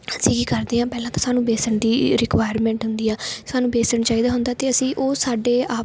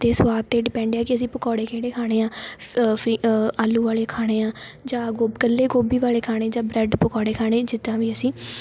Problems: background sounds at intervals